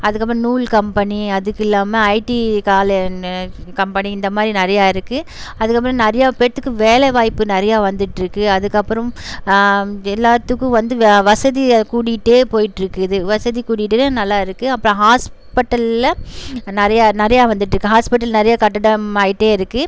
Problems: none marked